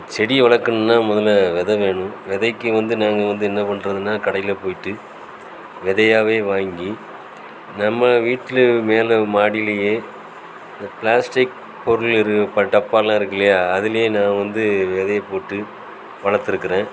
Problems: constant background noise